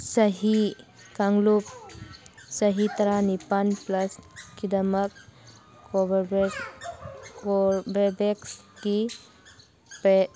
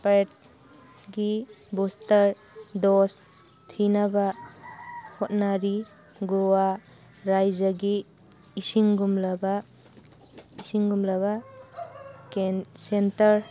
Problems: background sounds at intervals